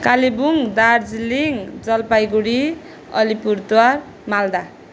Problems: constant background noise